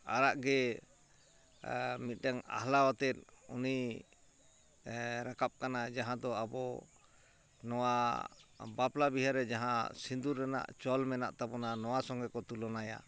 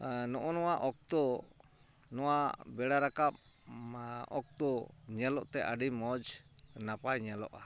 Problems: constant background noise